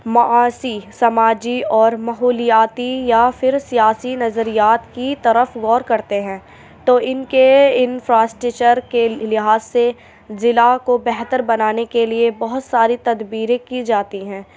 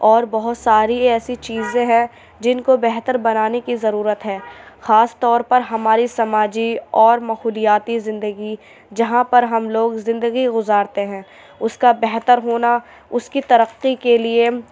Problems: none marked